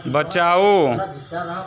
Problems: continuous background conversations